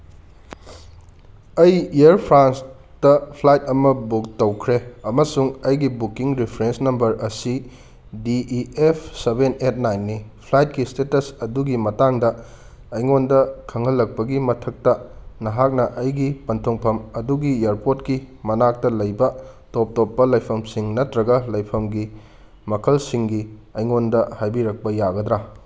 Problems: none marked